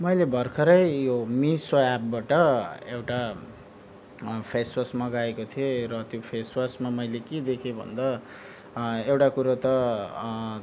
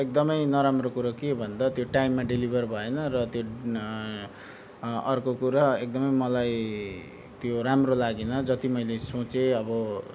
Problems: background sounds at intervals